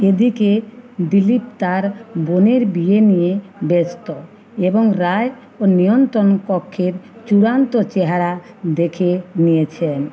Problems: continuous background conversations